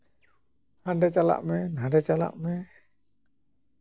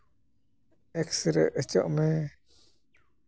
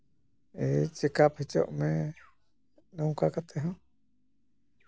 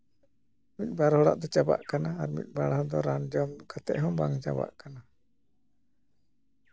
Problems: none marked